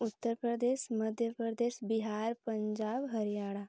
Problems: low volume